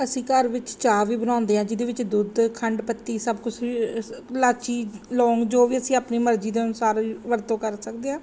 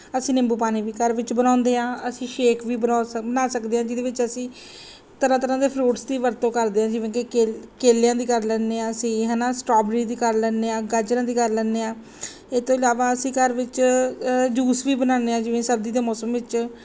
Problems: background sounds at intervals